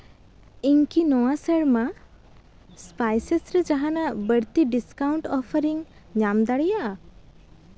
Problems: background sounds at intervals